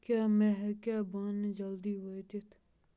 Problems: none marked